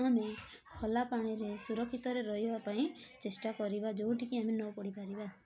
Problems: constant background noise, continuous background conversations